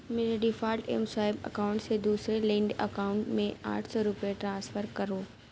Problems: none marked